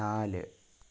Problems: low volume